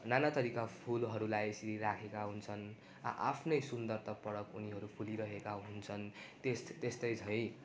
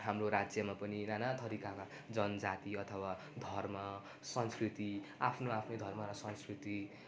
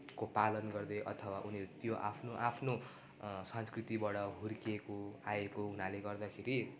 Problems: none marked